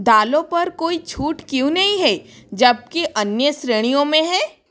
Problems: background sounds at intervals